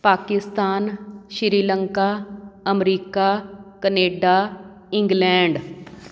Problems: background sounds at intervals